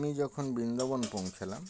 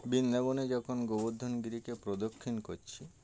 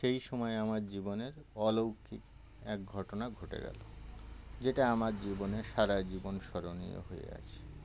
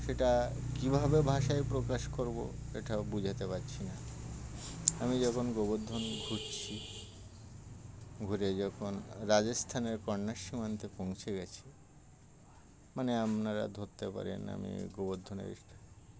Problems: constant background noise, background conversations at intervals